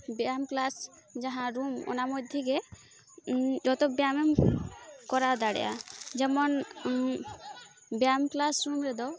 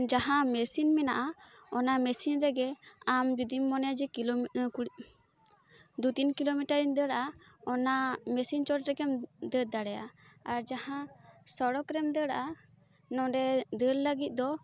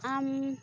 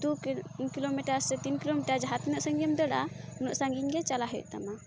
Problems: constant background noise, continuous background conversations